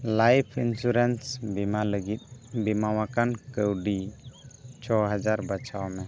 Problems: background sounds at intervals